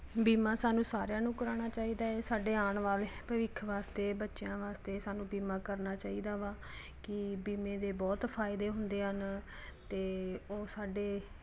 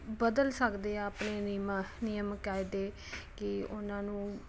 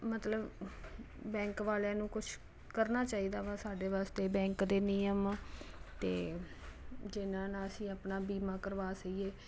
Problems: constant background noise